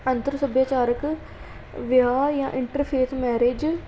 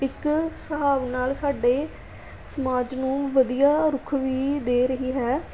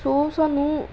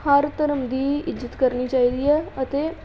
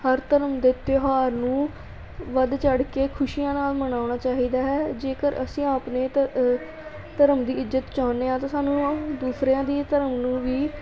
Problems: continuous background conversations